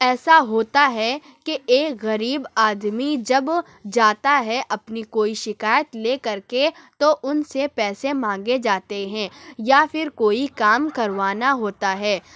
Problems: none marked